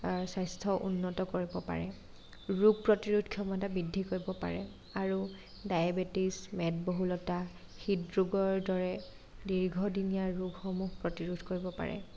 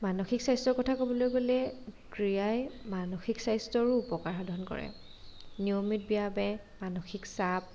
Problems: none marked